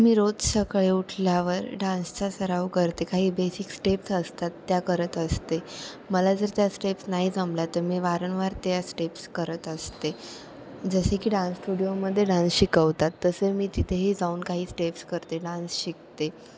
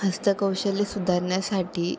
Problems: constant background noise